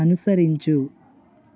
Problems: constant background noise